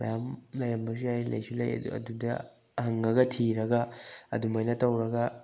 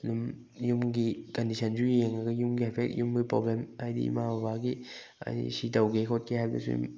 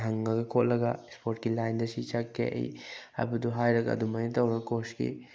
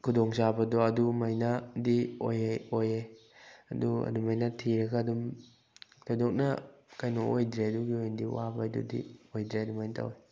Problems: background sounds at intervals